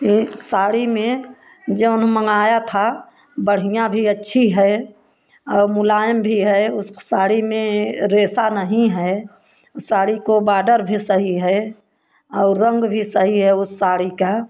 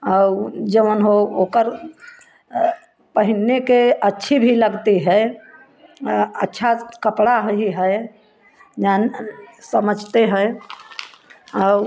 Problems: none marked